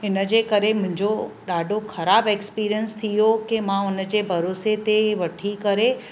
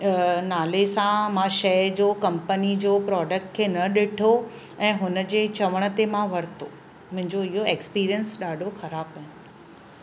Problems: constant background noise